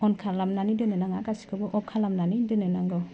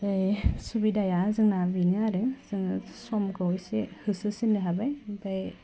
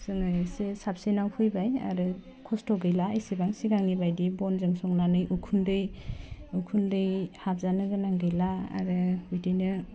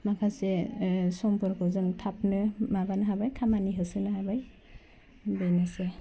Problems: none marked